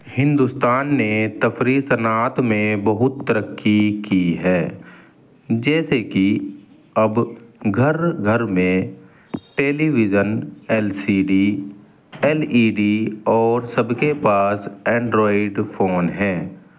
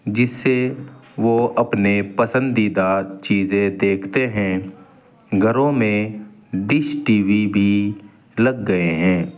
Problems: none marked